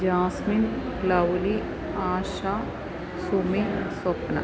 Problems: constant background noise